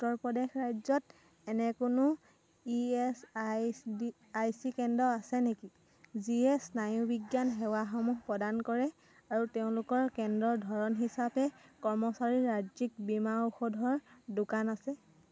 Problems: continuous background conversations